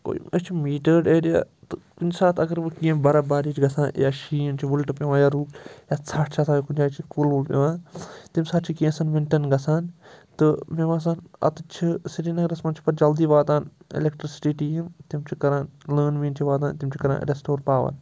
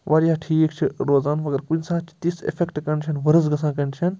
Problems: constant background noise